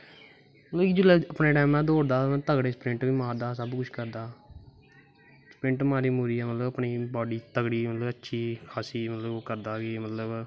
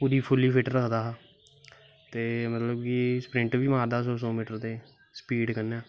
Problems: constant background noise